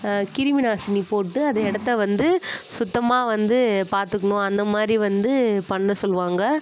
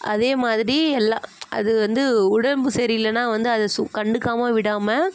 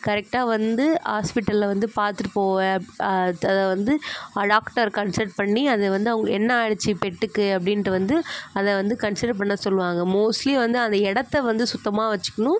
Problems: constant background noise